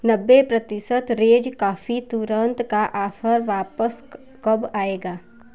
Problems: constant background noise